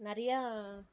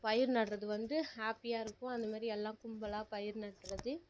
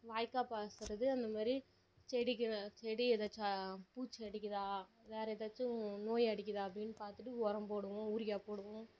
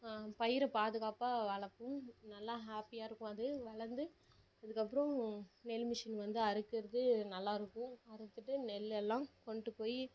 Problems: low volume